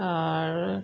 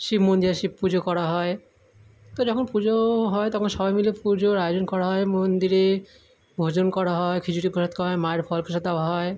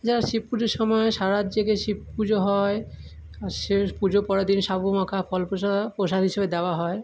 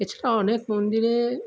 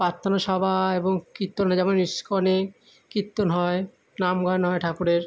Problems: background sounds at intervals